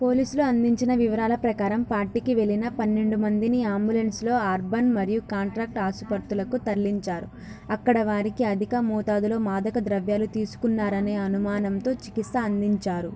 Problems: constant background noise, background conversations at intervals